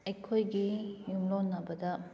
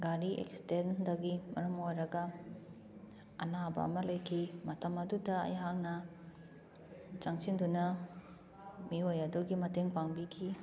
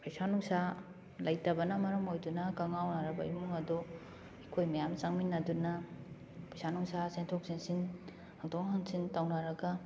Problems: constant background noise